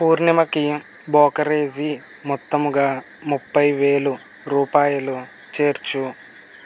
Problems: constant background noise